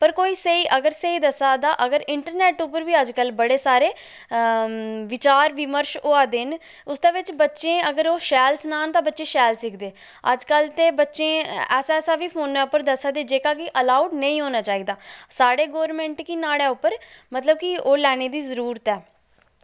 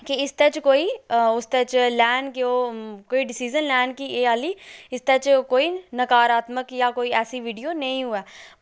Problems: none marked